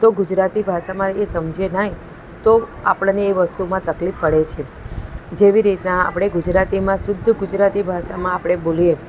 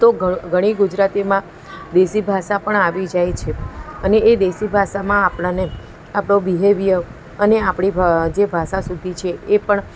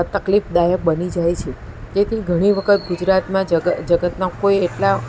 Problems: continuous background conversations